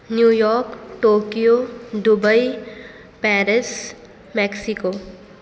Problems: none marked